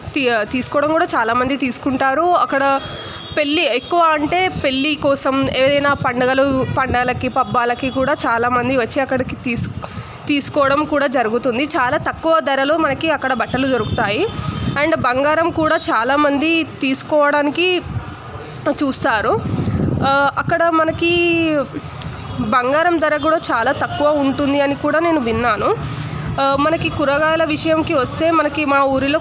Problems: constant background noise, background conversations at intervals